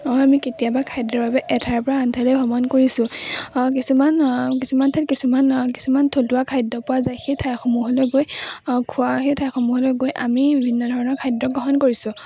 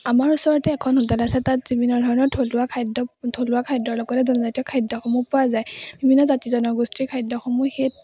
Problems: none marked